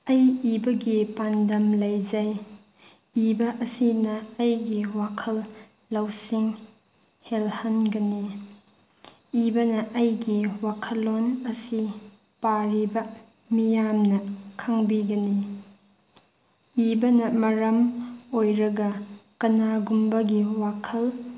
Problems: none marked